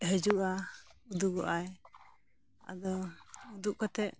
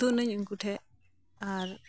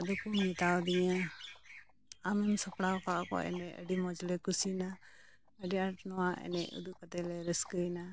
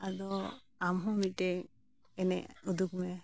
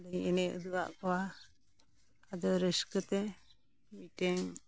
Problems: background sounds at intervals